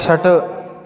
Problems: continuous background conversations